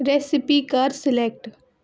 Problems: none marked